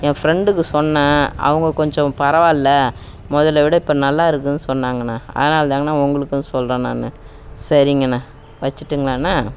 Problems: background sounds at intervals